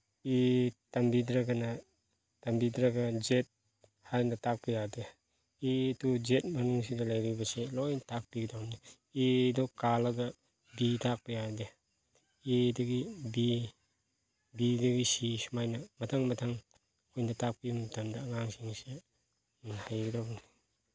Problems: none marked